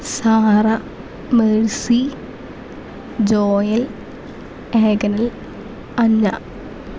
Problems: constant background noise